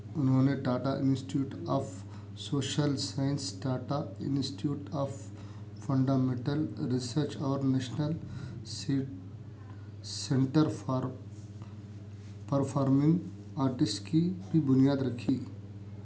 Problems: none marked